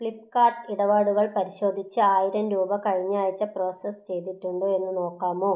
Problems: none marked